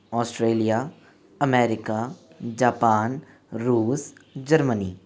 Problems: constant background noise